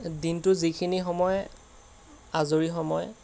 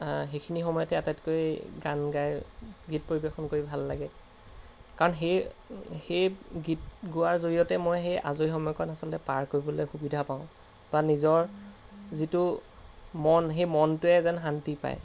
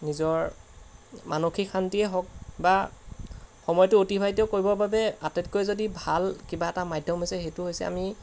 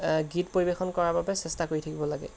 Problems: background sounds at intervals